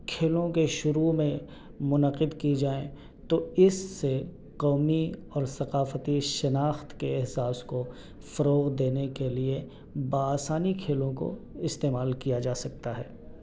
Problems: none marked